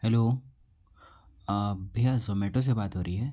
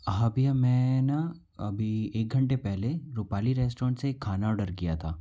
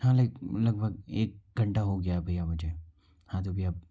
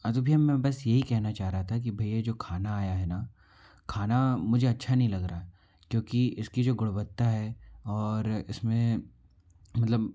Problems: none marked